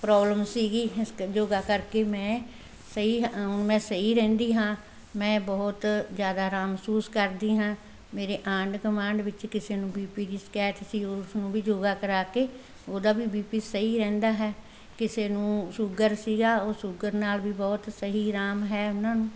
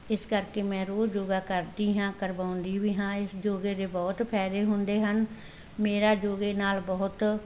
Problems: background conversations at intervals